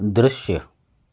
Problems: none marked